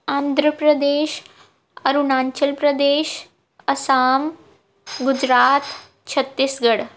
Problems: background sounds at intervals